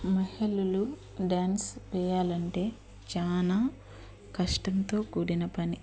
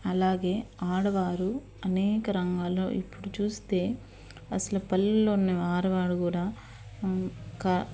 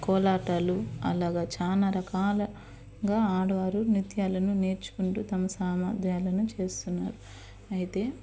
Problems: background sounds at intervals